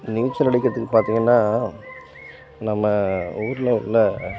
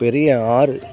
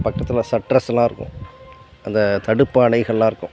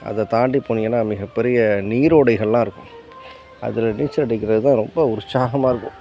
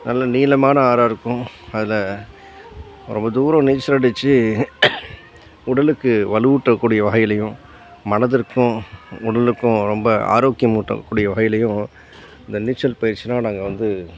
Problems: background sounds at intervals, background conversations at intervals